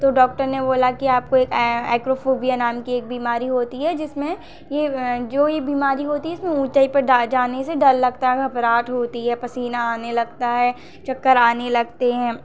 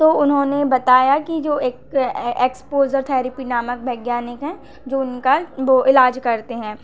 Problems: none marked